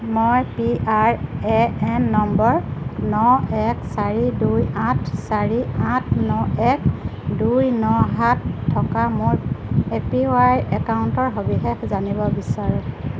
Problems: constant background noise